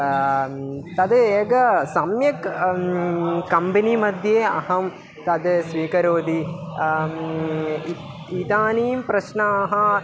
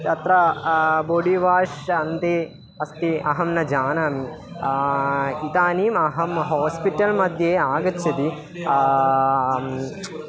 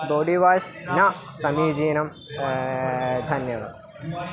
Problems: continuous background conversations